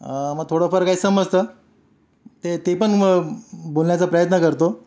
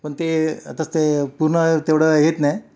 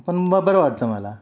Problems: background sounds at intervals